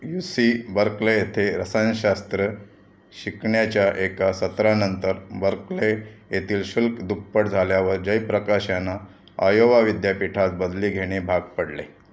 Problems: constant background noise, background conversations at intervals